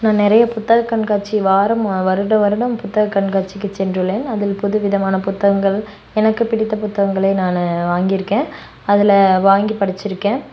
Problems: none marked